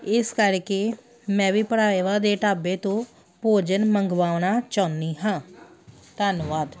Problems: background sounds at intervals